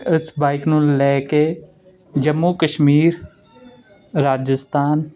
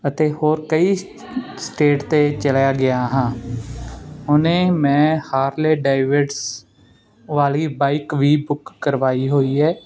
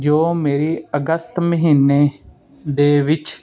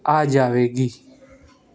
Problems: constant background noise